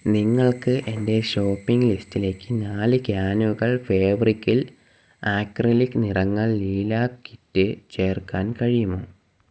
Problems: constant background noise